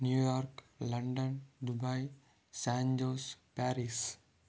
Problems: none marked